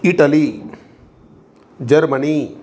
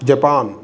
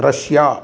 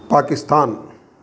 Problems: constant background noise